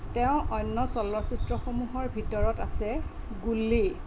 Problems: constant background noise